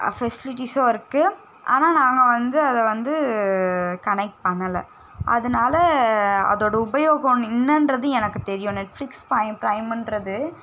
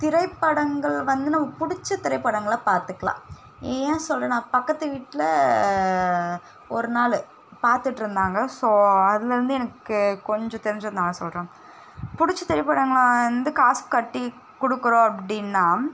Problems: none marked